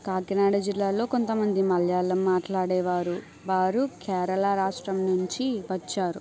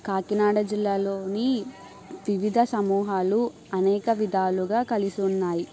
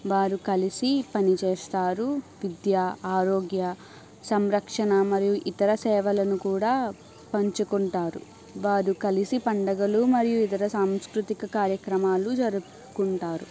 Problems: none marked